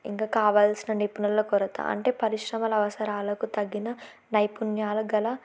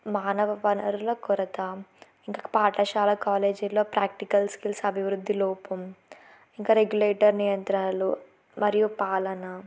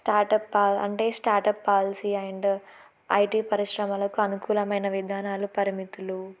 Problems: none marked